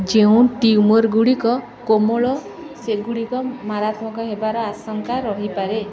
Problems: constant background noise